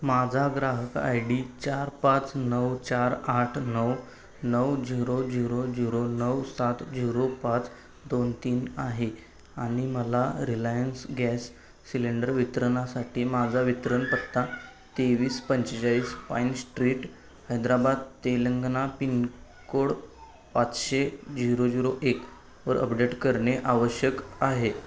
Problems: background sounds at intervals, background conversations at intervals